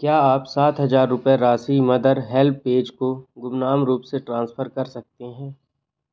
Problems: none marked